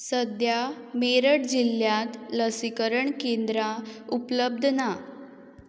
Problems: none marked